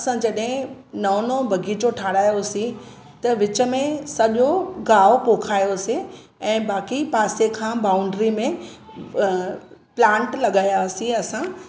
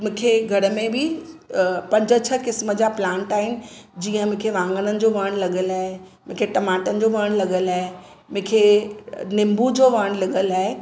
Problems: background sounds at intervals, echo